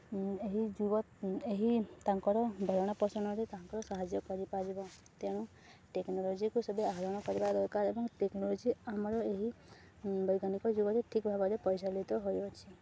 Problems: none marked